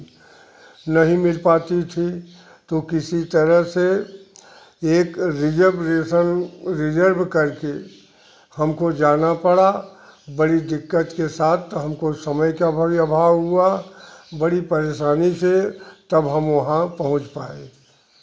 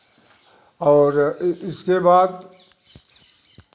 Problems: constant background noise